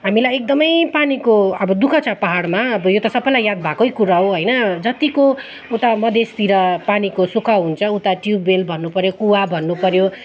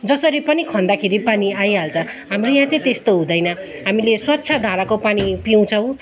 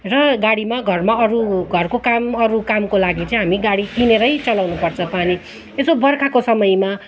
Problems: continuous background conversations